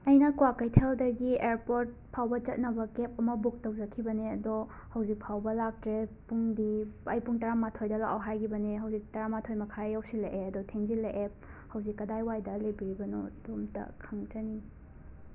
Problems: constant background noise